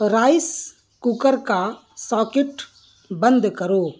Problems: background sounds at intervals